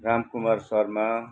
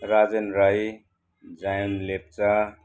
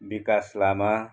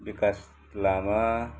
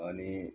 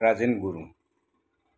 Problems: constant background noise